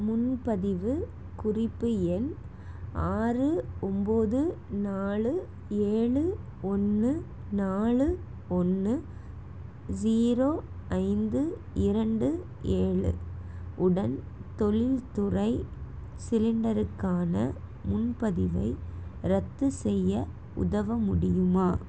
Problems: constant background noise